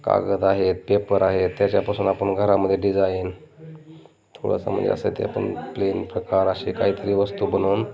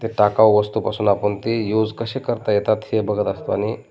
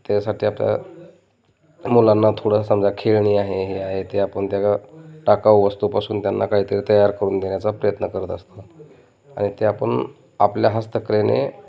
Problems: constant background noise, continuous background conversations